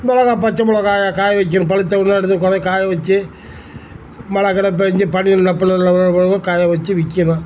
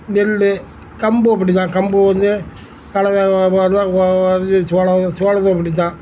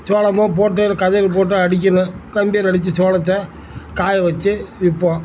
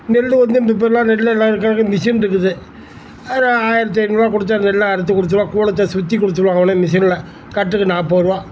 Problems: constant background noise